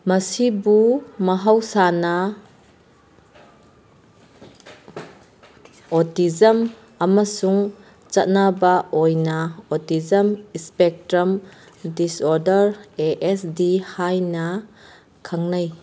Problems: background conversations at intervals